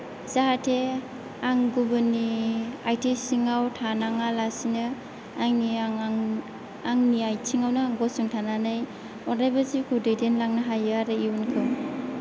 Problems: low volume